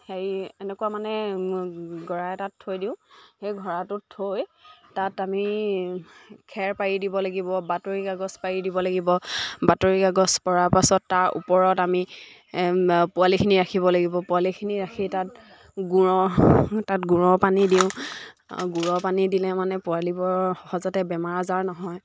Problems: background sounds at intervals, background conversations at intervals